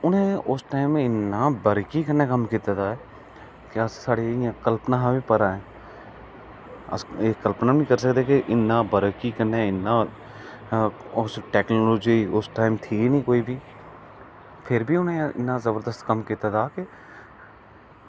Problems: low volume